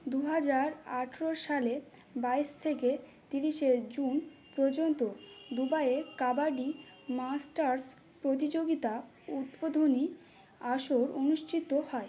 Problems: background sounds at intervals